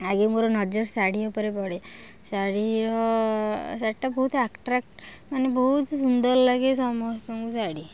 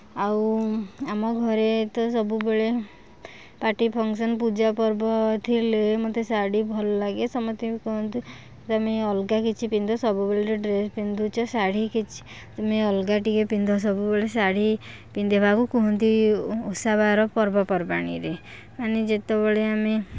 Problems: background sounds at intervals, background conversations at intervals